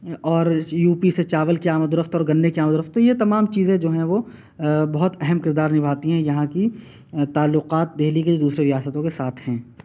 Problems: constant background noise